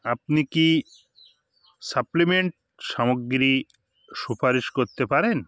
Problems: background sounds at intervals